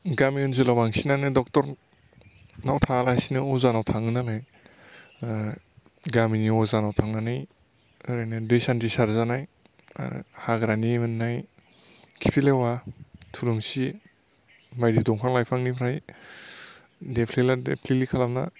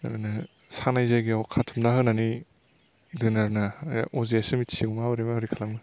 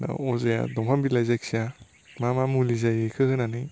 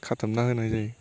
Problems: constant background noise